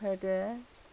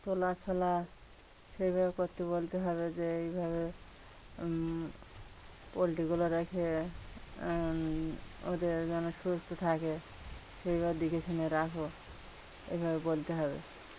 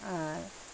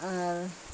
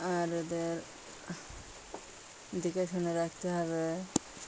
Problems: constant background noise